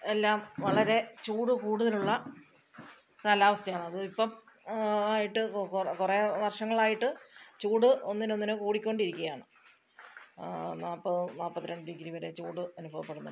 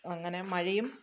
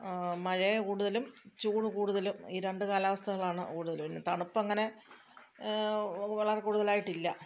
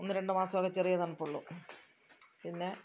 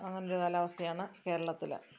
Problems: background sounds at intervals, low volume